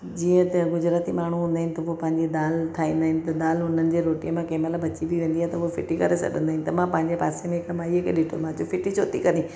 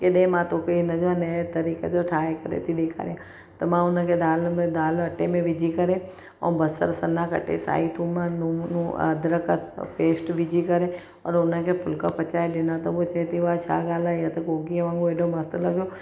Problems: none marked